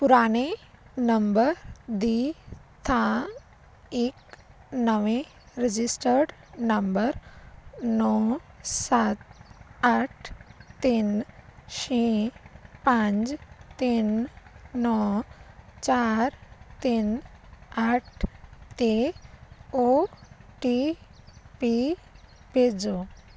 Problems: constant background noise